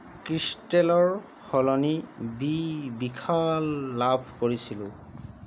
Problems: constant background noise